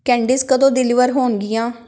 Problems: background sounds at intervals